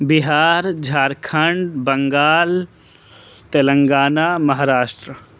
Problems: none marked